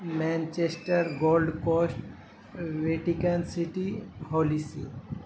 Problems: constant background noise